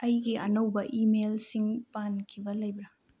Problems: low volume